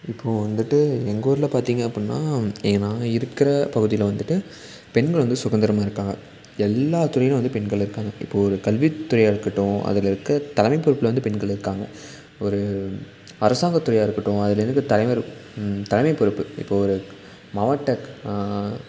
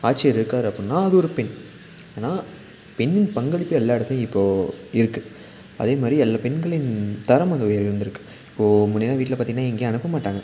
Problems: constant background noise